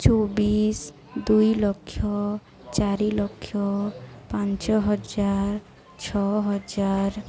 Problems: constant background noise, continuous background conversations